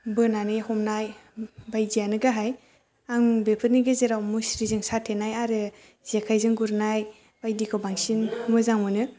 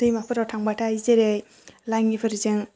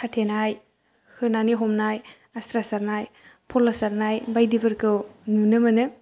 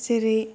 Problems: low volume